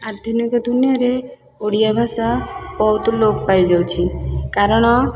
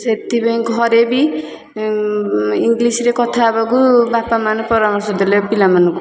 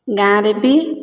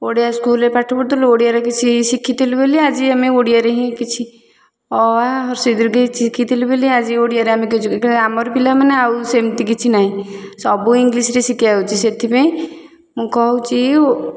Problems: constant background noise, continuous background conversations